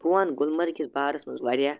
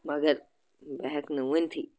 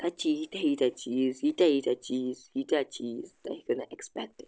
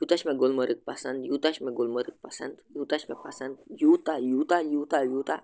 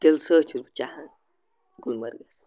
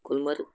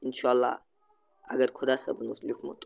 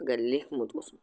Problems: constant background noise